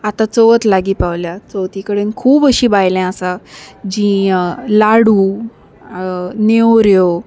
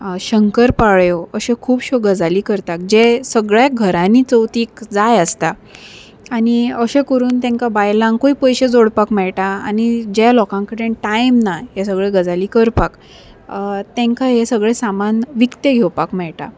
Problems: none marked